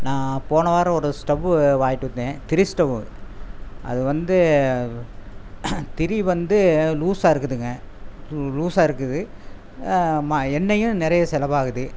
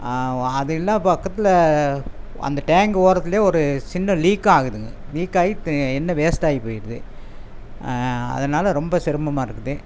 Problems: constant background noise